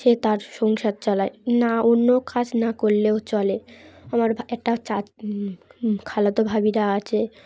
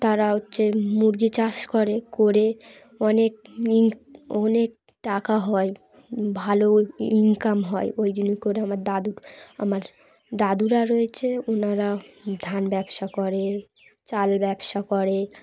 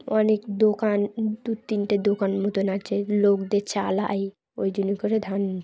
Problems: constant background noise